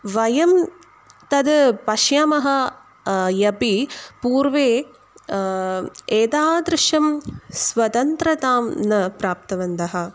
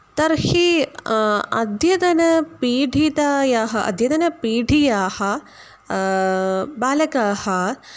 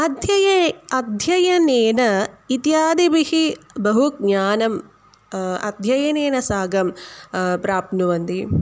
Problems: none marked